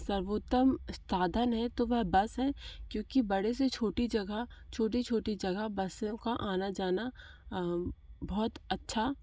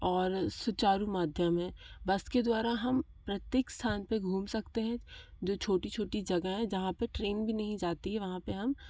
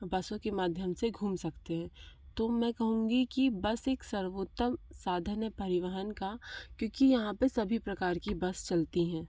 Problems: none marked